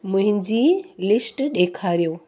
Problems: constant background noise